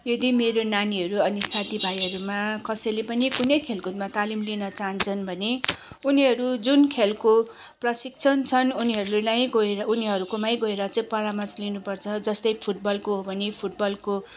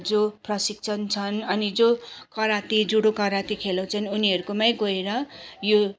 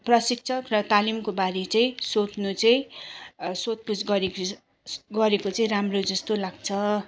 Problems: none marked